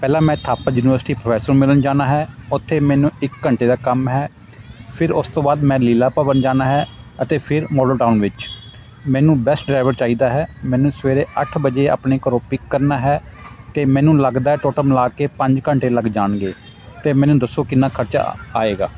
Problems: constant background noise, background conversations at intervals